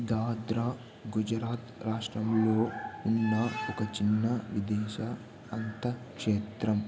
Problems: constant background noise, low volume